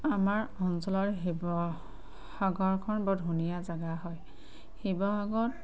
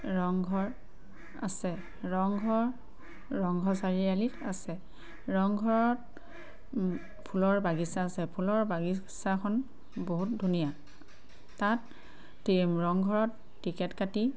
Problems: constant background noise